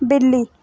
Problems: none marked